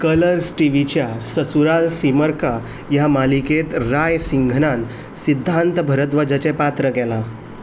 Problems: background sounds at intervals